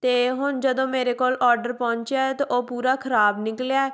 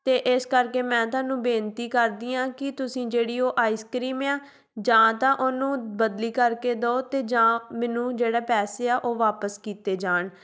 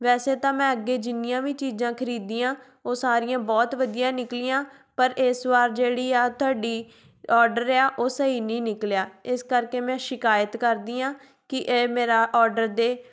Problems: none marked